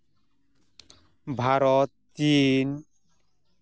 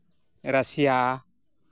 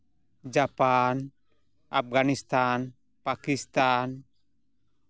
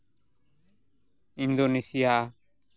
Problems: none marked